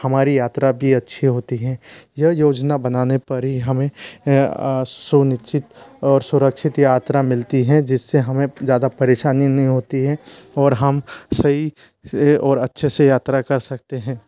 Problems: constant background noise, background conversations at intervals